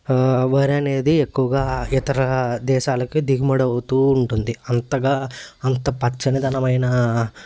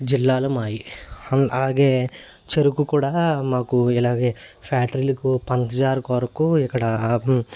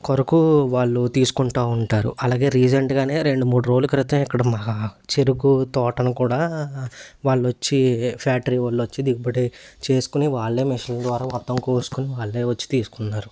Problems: none marked